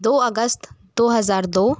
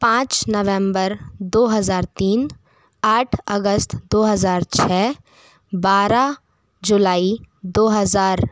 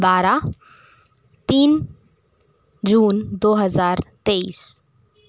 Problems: constant background noise